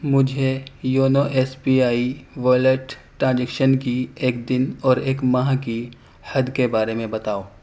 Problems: none marked